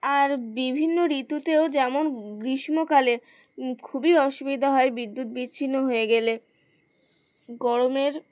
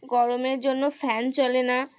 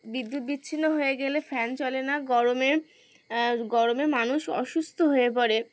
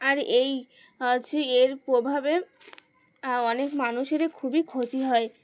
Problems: none marked